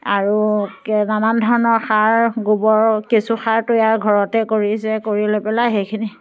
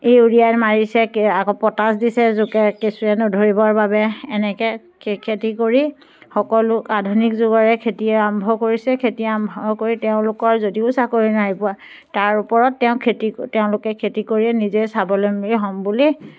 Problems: background sounds at intervals